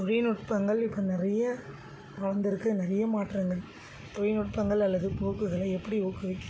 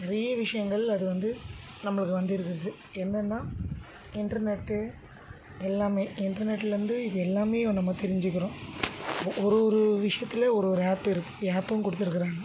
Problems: constant background noise